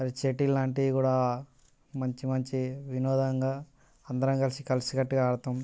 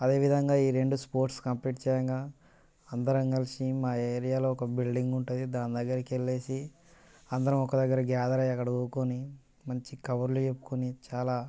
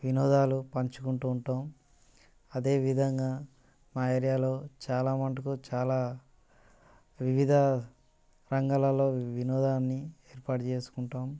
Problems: none marked